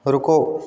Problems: background sounds at intervals